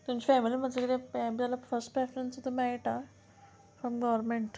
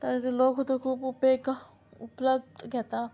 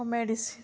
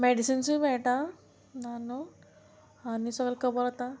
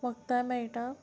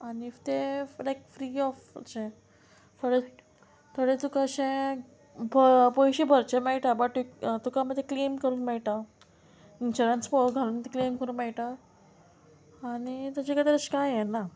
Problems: none marked